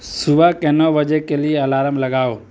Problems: constant background noise